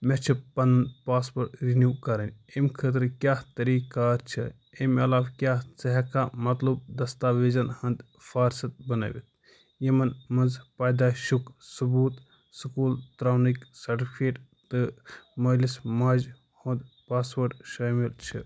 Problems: none marked